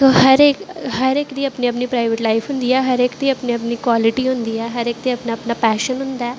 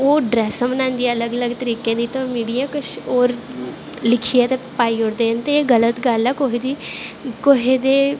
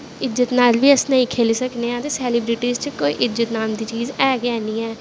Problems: none marked